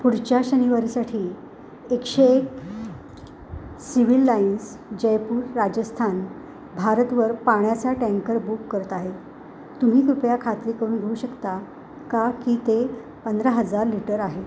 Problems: constant background noise